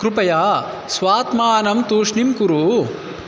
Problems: none marked